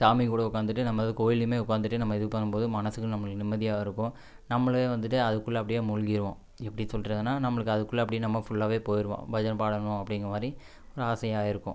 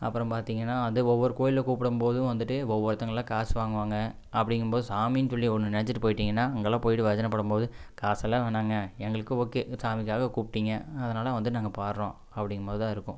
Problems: none marked